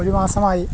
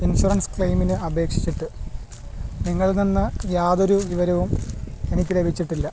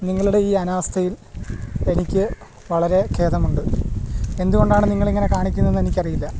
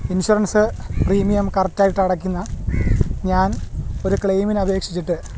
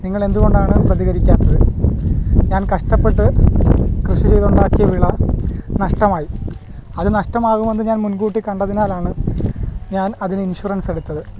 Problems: constant background noise